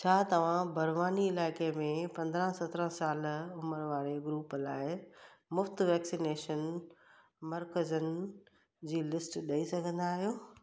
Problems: echo